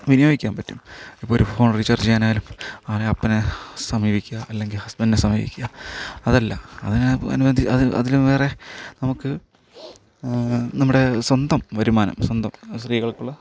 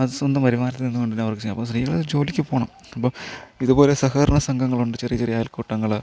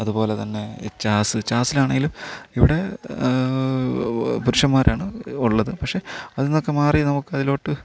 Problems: none marked